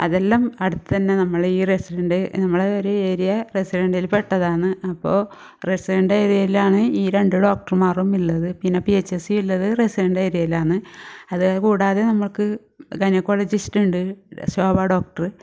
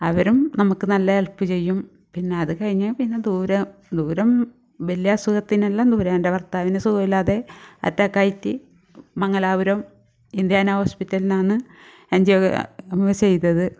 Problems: none marked